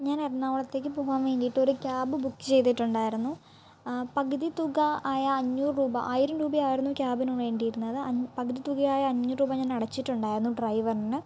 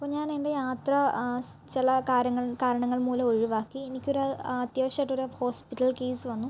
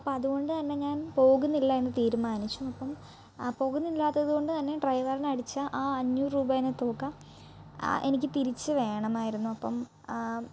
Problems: low volume